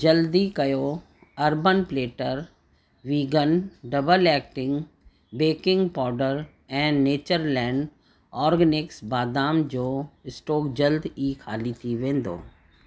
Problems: constant background noise